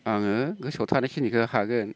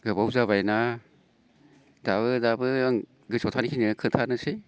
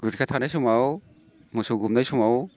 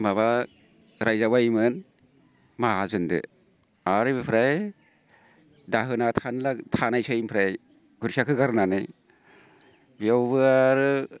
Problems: constant background noise